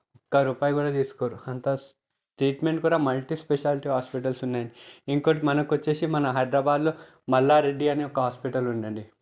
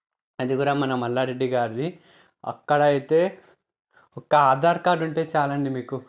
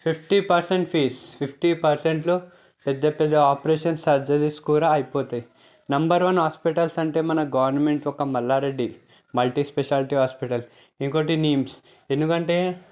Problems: none marked